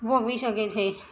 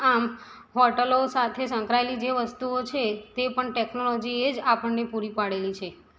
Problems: background sounds at intervals